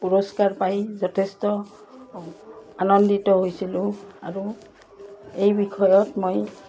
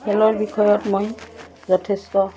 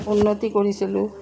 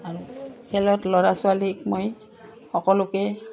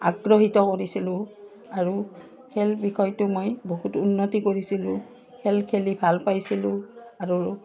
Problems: constant background noise